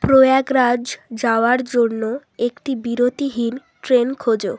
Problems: continuous background conversations